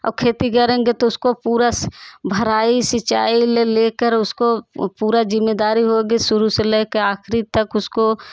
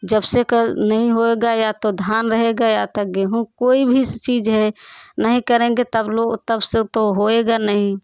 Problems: background sounds at intervals, background conversations at intervals